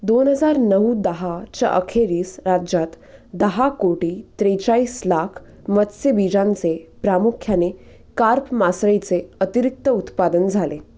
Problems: constant background noise